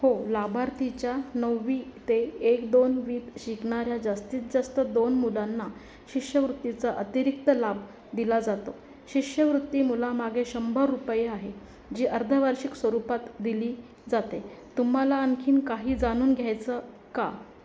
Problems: none marked